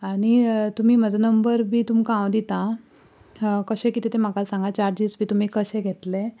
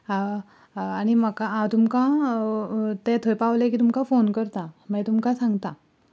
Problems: background conversations at intervals